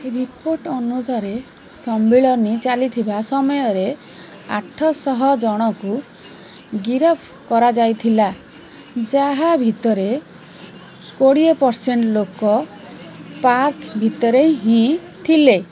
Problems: constant background noise